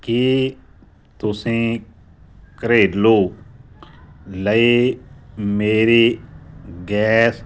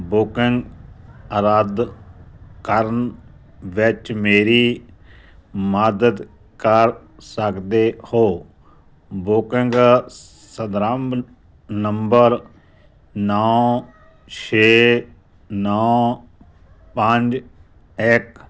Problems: background conversations at intervals